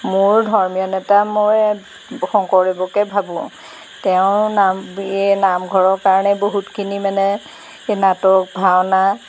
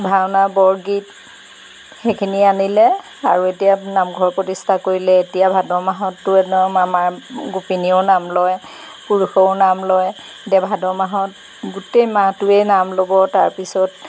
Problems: background sounds at intervals